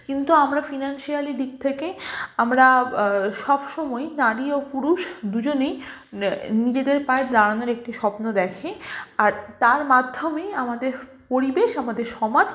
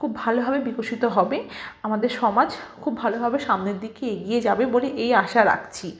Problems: constant background noise